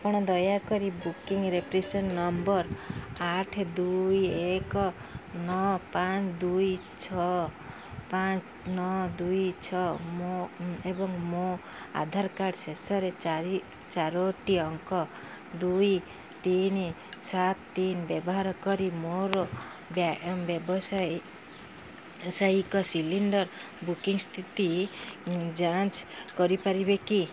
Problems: none marked